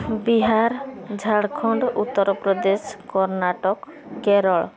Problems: constant background noise, continuous background conversations